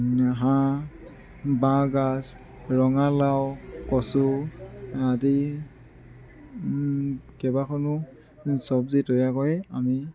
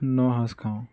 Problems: constant background noise, background conversations at intervals